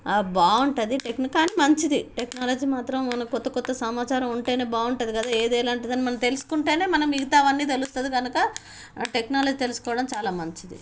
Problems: background sounds at intervals